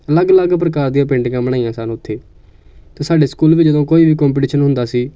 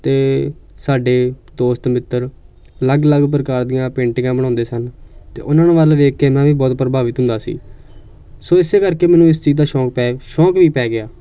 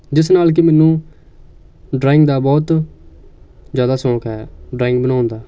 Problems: none marked